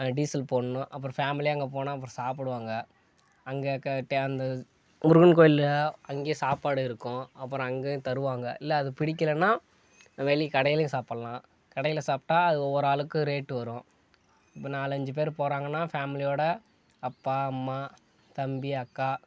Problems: background sounds at intervals